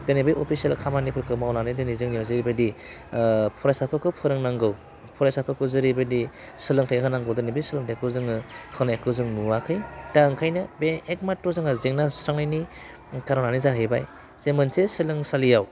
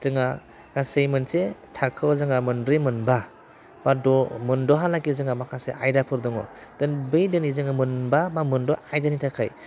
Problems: constant background noise